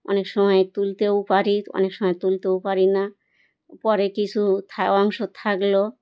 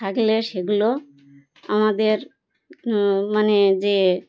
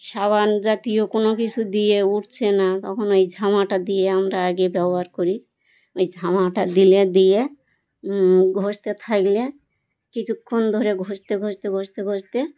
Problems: none marked